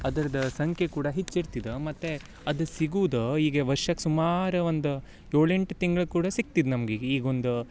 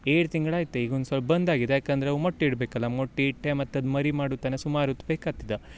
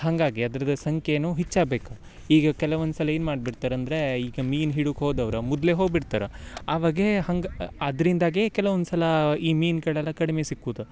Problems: background sounds at intervals